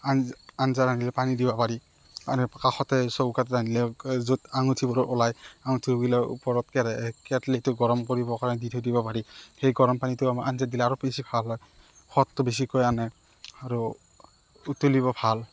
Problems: none marked